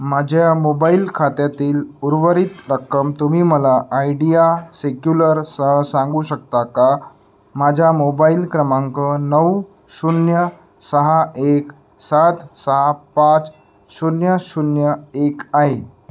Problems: background sounds at intervals